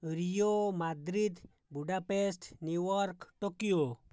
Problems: low volume